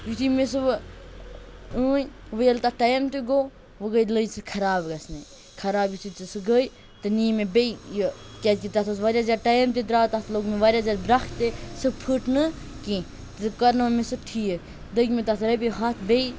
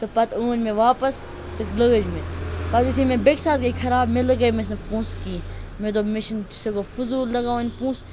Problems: constant background noise